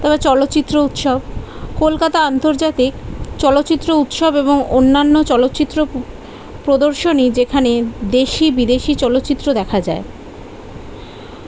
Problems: none marked